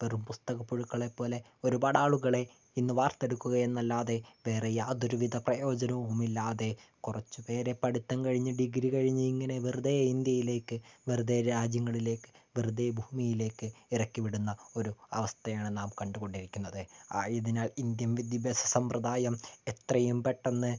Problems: low volume